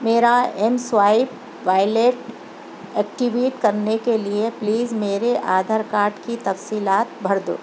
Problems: constant background noise